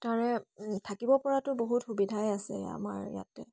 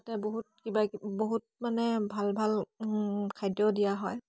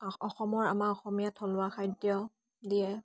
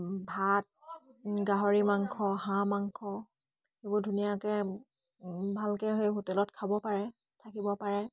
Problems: none marked